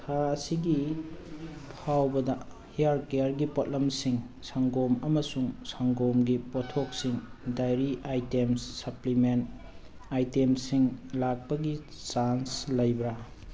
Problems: background sounds at intervals